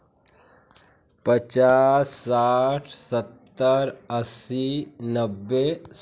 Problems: constant background noise, continuous background conversations